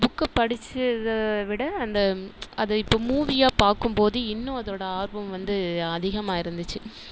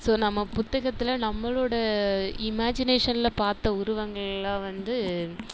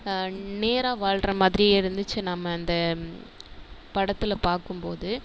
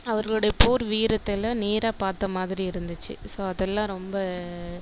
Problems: constant background noise